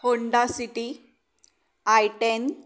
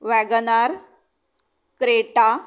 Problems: background sounds at intervals